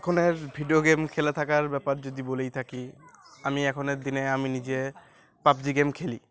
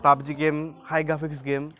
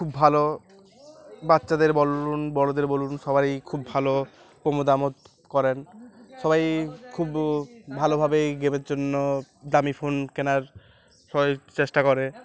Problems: constant background noise